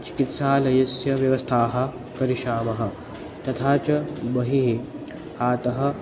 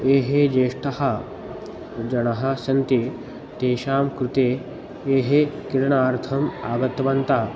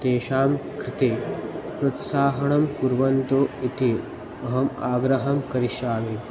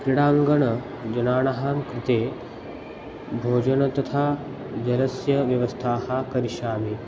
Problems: background sounds at intervals